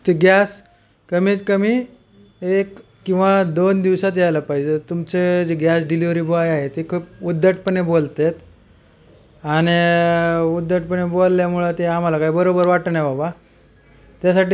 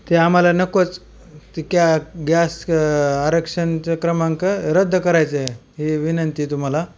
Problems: constant background noise